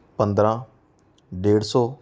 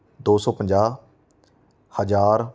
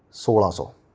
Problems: none marked